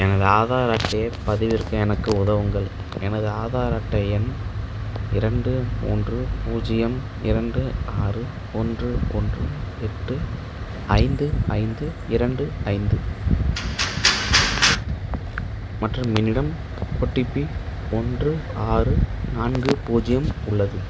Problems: background sounds at intervals